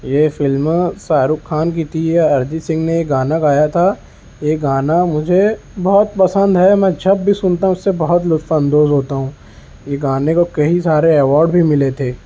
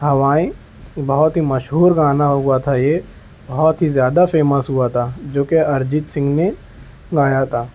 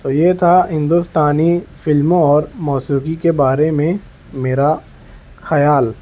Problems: background sounds at intervals